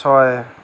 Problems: constant background noise